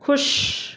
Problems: constant background noise, echo